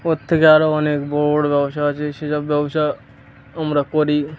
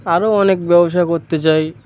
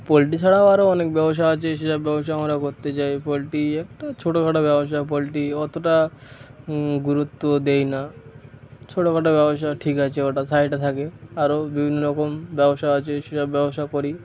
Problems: constant background noise, background conversations at intervals